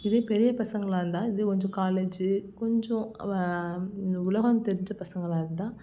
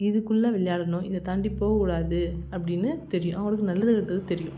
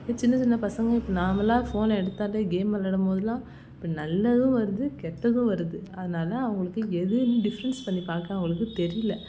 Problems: constant background noise